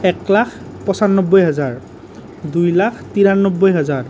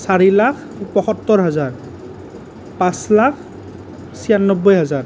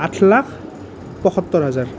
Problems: none marked